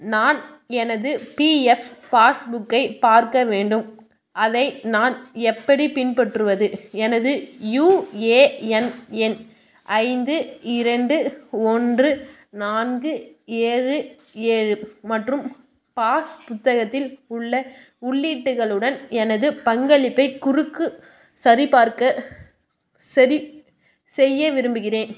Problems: background sounds at intervals